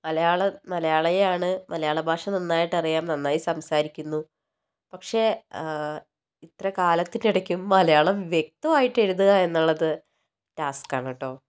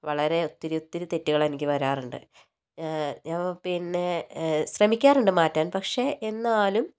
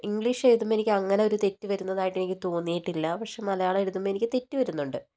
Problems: none marked